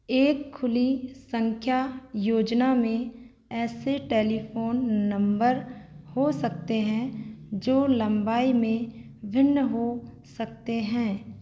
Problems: constant background noise